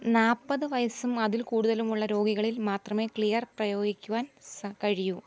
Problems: background sounds at intervals